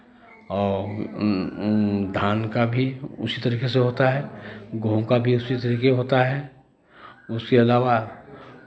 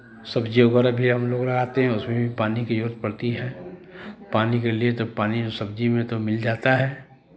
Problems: none marked